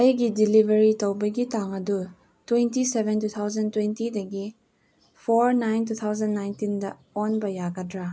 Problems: none marked